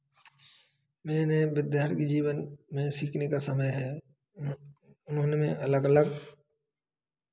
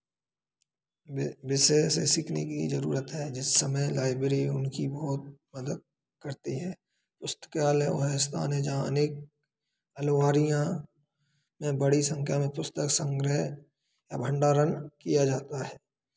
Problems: constant background noise, background conversations at intervals